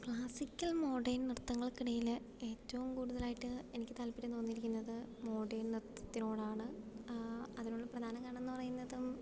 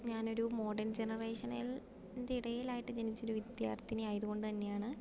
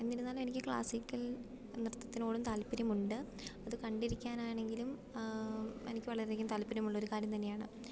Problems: background sounds at intervals, low volume